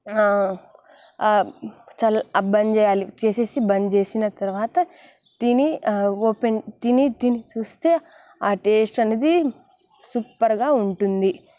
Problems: constant background noise, background conversations at intervals